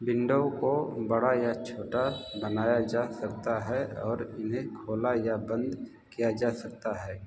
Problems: constant background noise